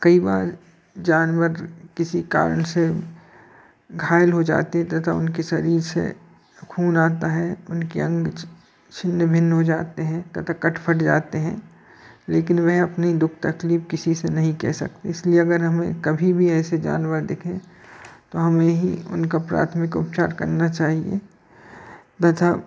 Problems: constant background noise, background conversations at intervals